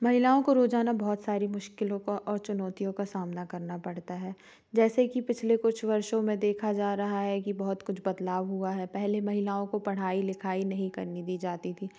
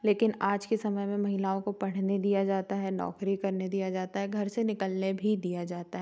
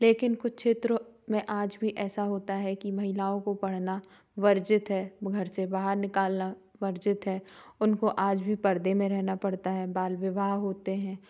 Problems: background sounds at intervals